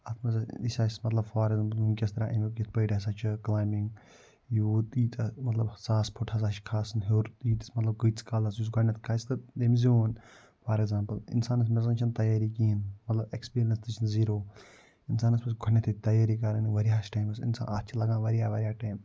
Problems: none marked